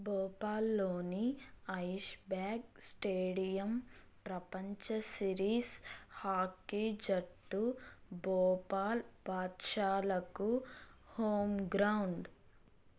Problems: none marked